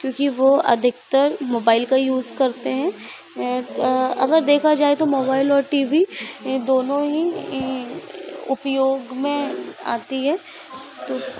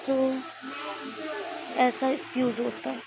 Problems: constant background noise